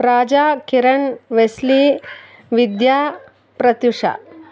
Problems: background conversations at intervals